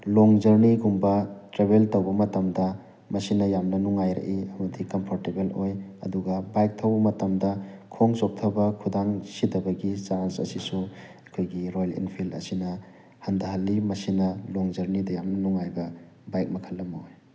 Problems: constant background noise